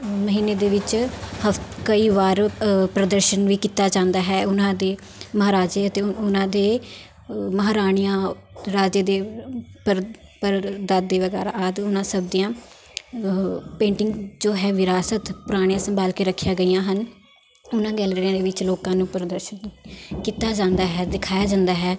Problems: constant background noise, background conversations at intervals